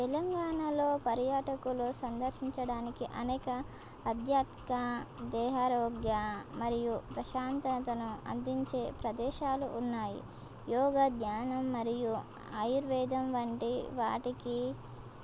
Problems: none marked